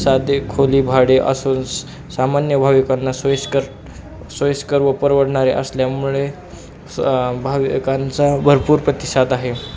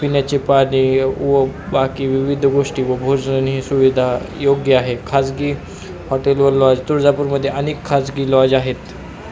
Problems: constant background noise, background conversations at intervals